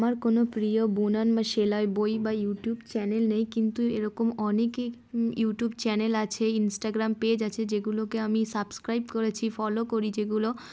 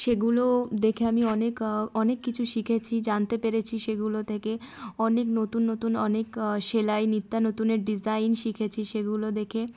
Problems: background sounds at intervals, background conversations at intervals